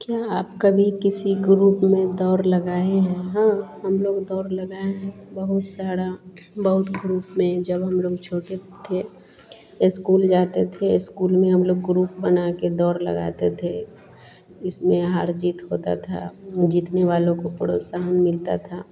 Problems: constant background noise